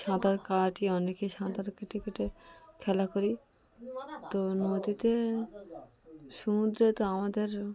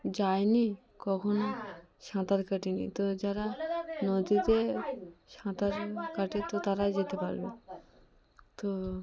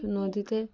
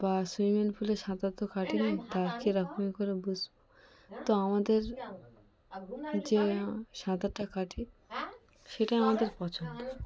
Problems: constant background noise, background conversations at intervals